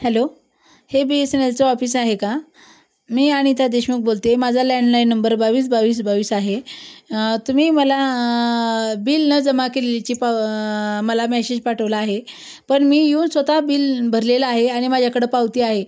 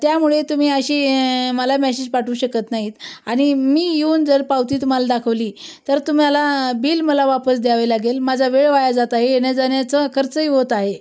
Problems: background sounds at intervals